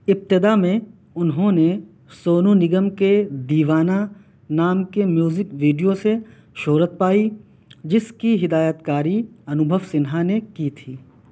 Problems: none marked